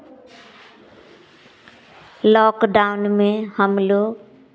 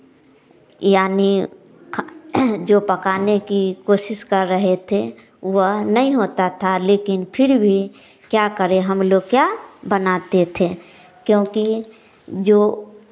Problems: none marked